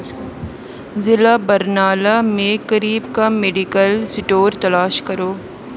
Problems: none marked